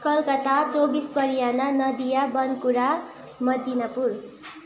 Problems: background conversations at intervals